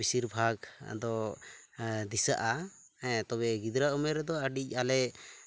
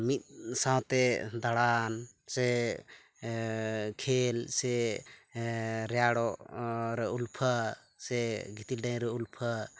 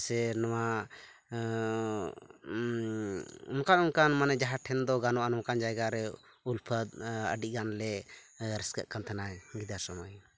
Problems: background sounds at intervals